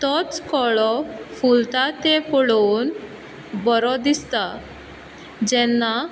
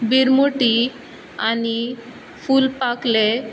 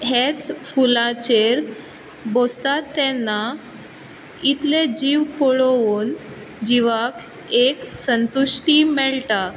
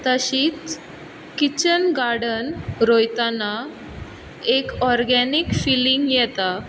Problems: background sounds at intervals